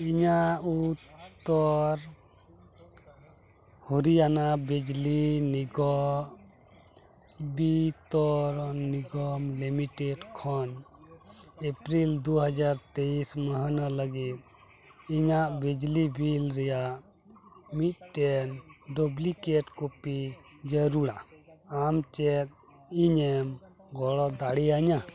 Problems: continuous background conversations